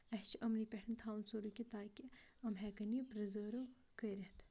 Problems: background sounds at intervals